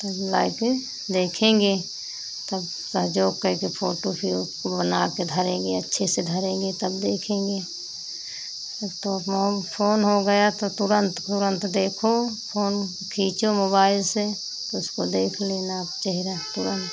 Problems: constant background noise